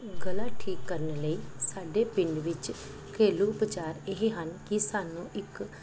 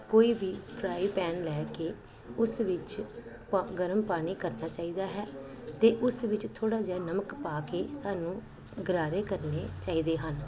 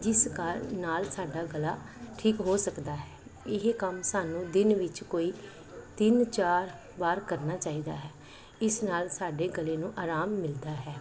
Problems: background sounds at intervals